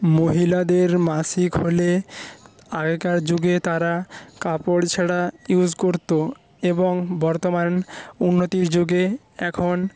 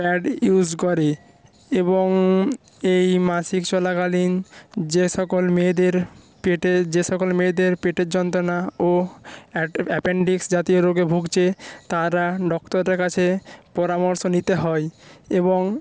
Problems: background sounds at intervals